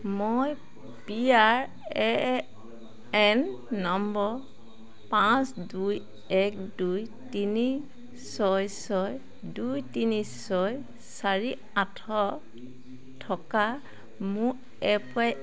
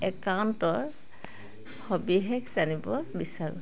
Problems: constant background noise